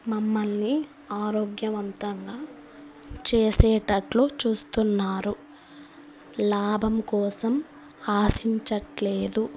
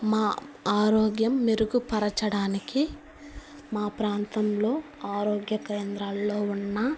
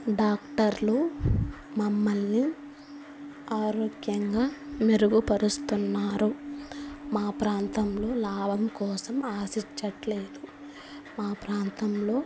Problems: constant background noise